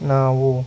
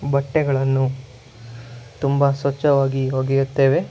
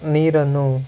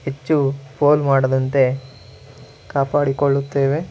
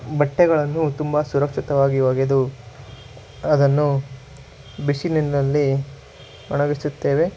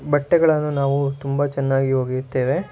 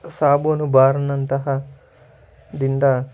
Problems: background sounds at intervals